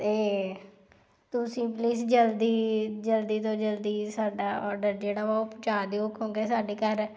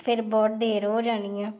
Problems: background sounds at intervals